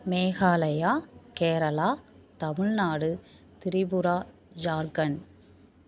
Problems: none marked